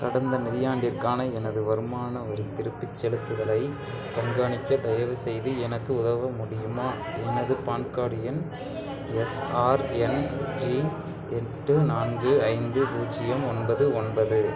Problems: continuous background conversations